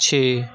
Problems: constant background noise